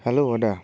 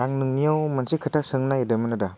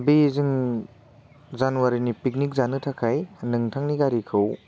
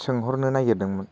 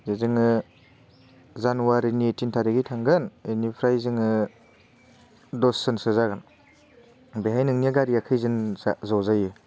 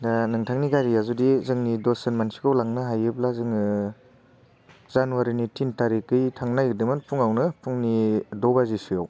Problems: constant background noise